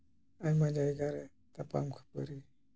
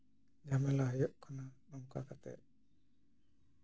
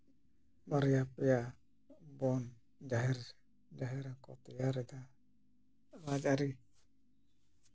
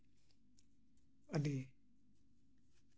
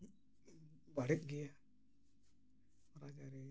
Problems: low volume